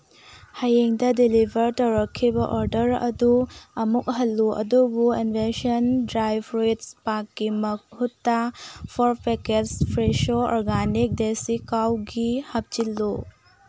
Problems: low volume